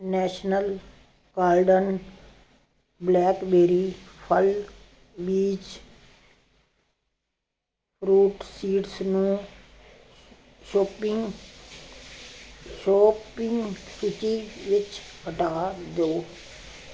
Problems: none marked